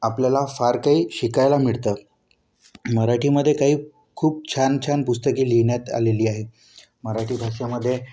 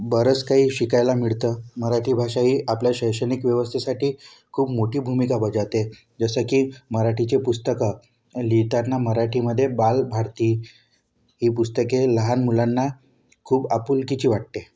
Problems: none marked